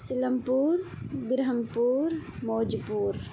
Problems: constant background noise